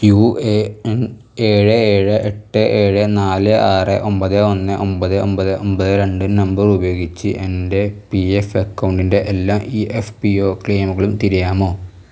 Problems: none marked